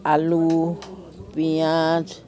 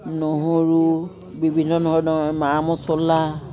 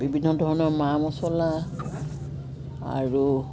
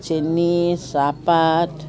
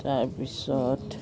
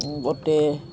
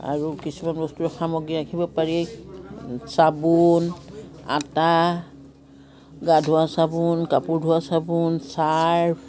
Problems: constant background noise, background conversations at intervals